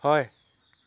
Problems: background sounds at intervals